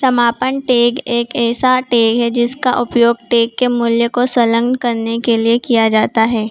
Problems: constant background noise